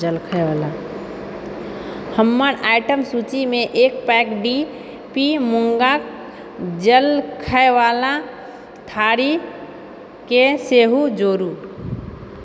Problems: background conversations at intervals